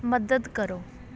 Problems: background sounds at intervals